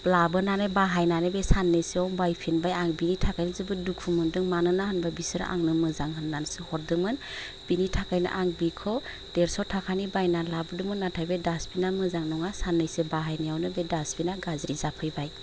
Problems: constant background noise